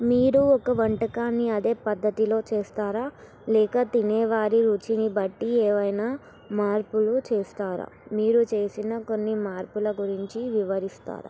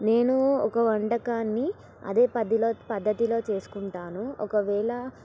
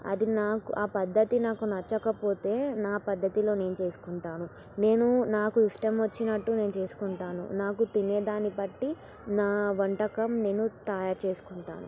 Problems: background sounds at intervals